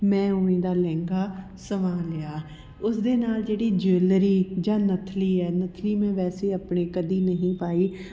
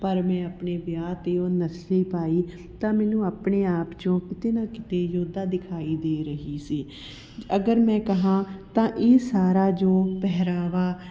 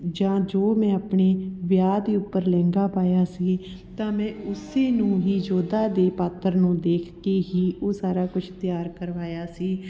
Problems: background sounds at intervals, continuous background conversations